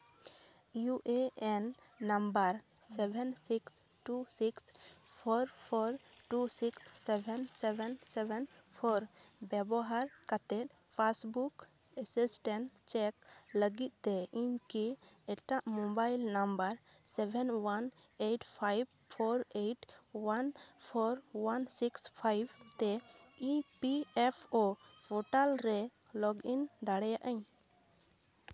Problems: none marked